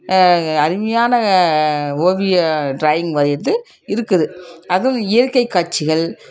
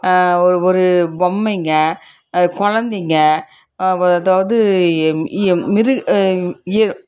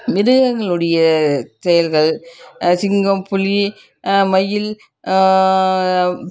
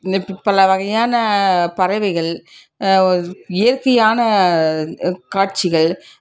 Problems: background sounds at intervals, background conversations at intervals